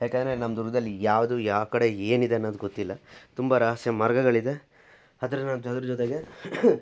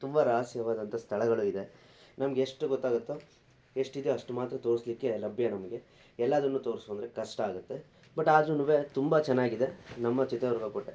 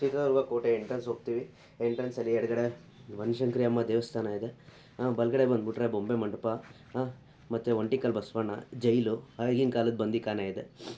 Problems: none marked